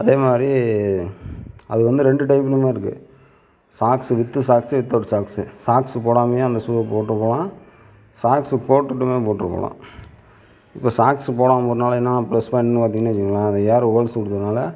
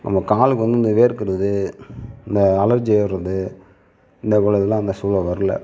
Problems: none marked